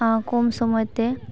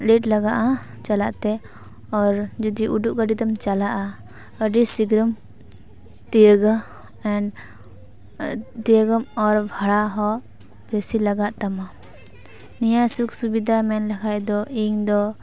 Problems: none marked